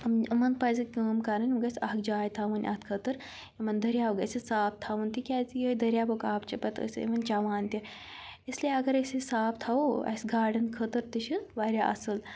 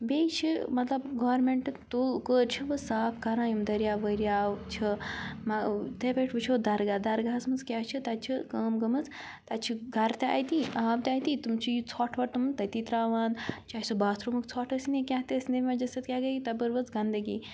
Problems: none marked